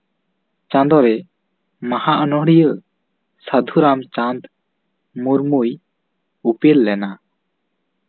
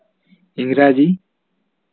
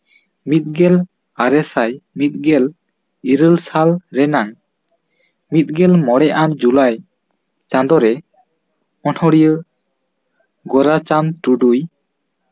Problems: none marked